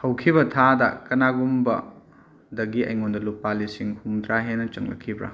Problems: none marked